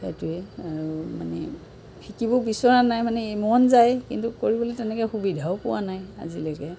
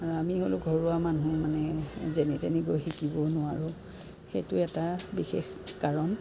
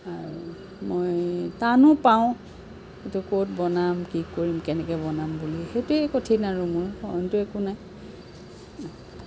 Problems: constant background noise